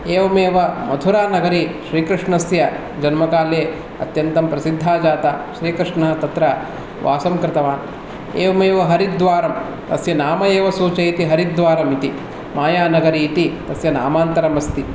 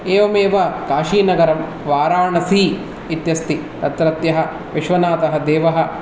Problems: none marked